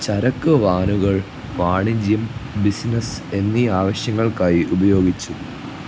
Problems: low volume